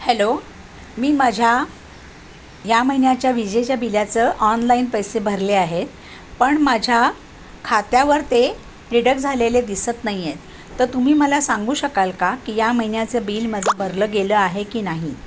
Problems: constant background noise